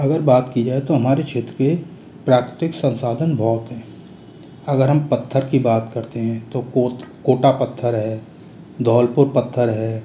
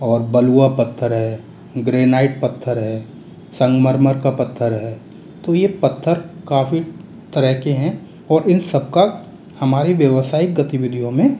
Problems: constant background noise